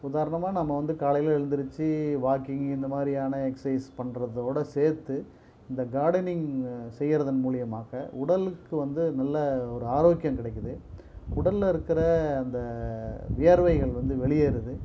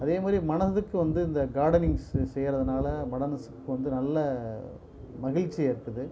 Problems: none marked